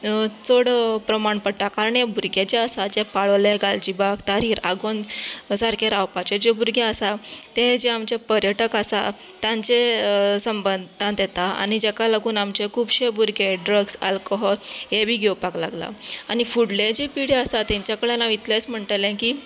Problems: none marked